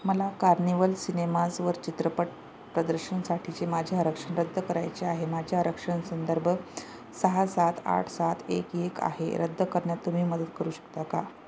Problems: none marked